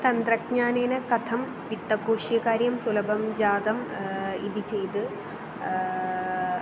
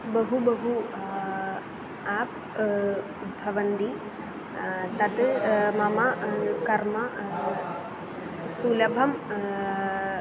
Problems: constant background noise